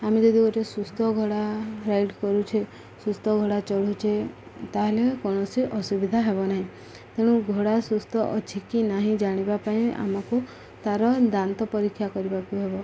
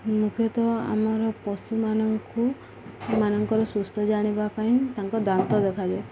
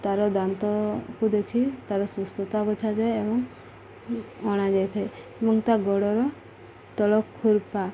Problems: none marked